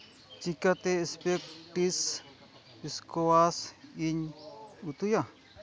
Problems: background sounds at intervals